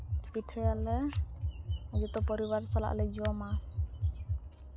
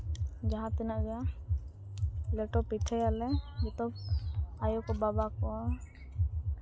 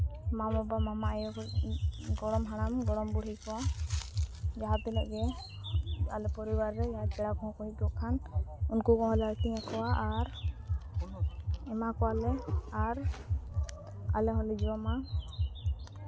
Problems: background conversations at intervals, low volume